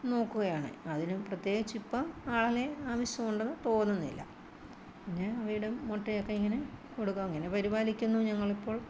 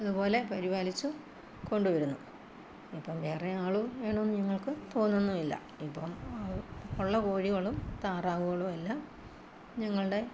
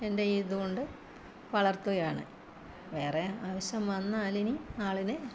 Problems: constant background noise, low volume